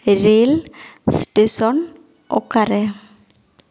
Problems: echo